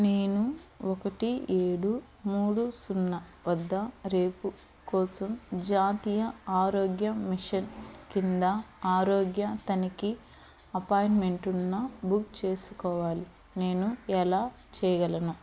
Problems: constant background noise